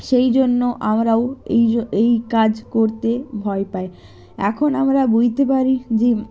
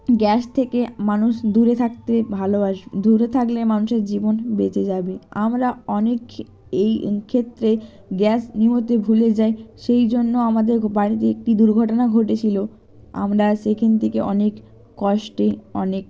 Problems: background sounds at intervals